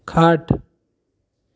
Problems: constant background noise